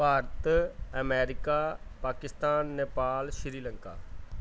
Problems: none marked